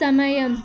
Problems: constant background noise